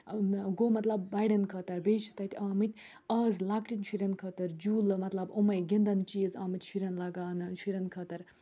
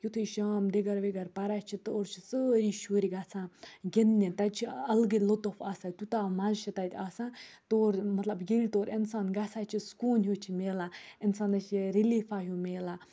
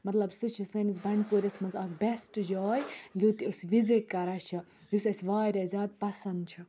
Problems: low volume